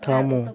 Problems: none marked